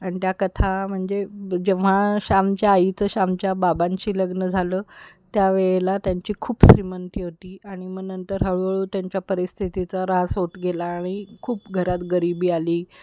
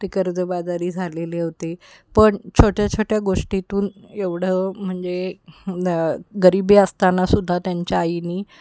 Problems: constant background noise